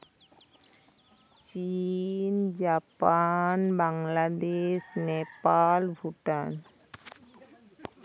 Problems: background conversations at intervals